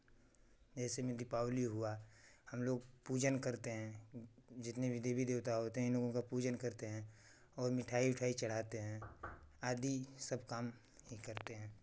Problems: none marked